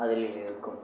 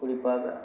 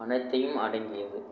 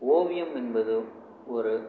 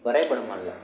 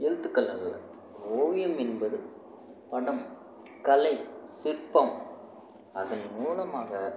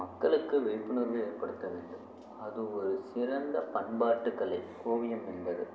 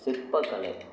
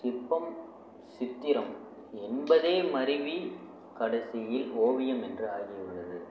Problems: none marked